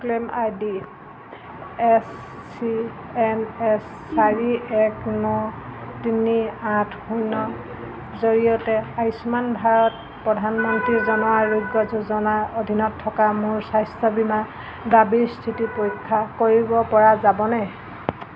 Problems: none marked